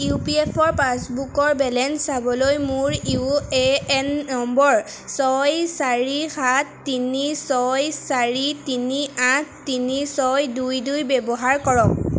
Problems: constant background noise